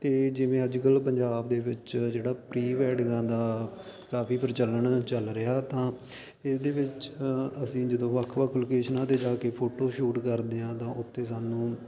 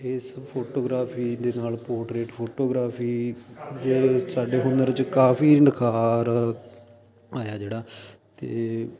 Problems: constant background noise